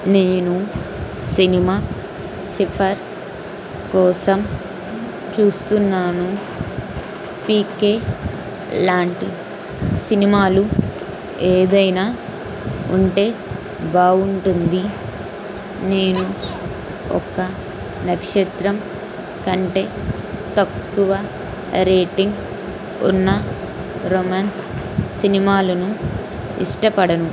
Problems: constant background noise